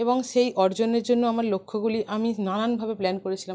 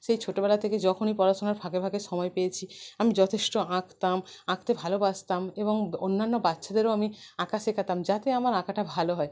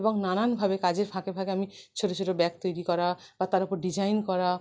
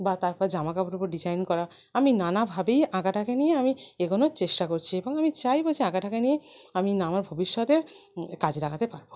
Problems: none marked